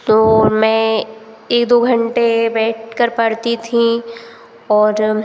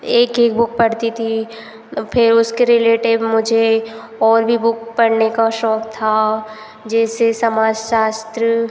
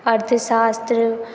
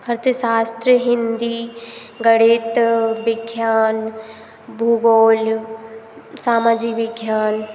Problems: constant background noise